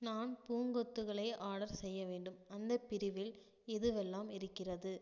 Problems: low volume